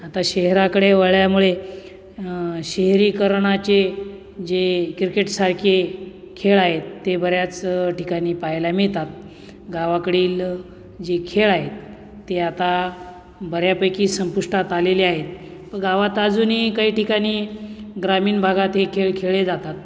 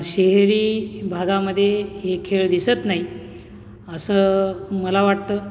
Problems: none marked